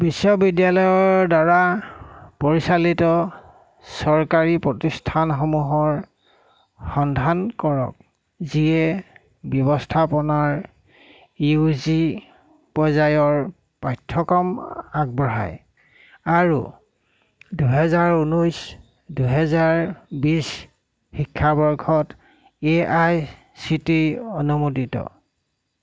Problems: constant background noise